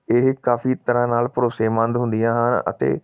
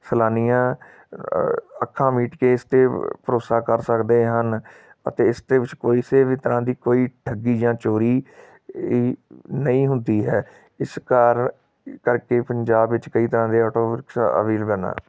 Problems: background sounds at intervals